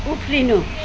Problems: constant background noise, low volume